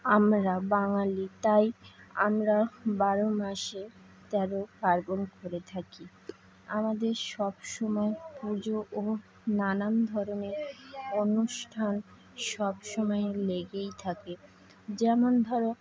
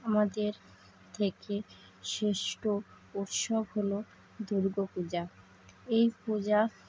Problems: constant background noise